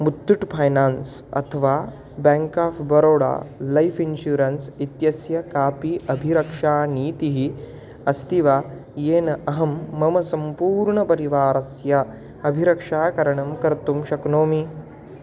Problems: constant background noise